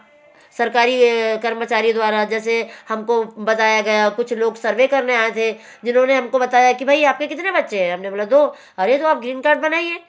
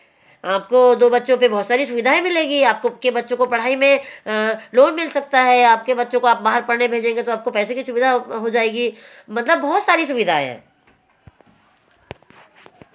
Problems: none marked